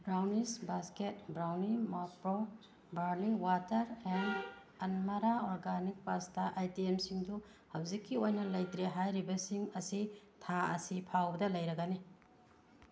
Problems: background sounds at intervals